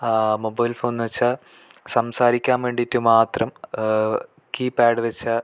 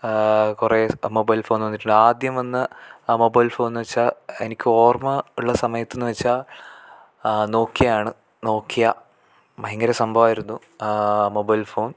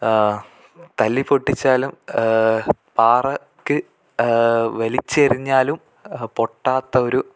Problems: none marked